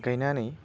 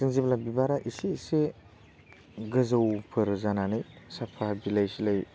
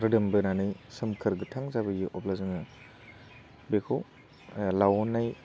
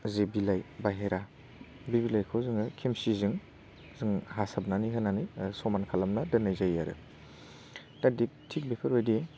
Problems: constant background noise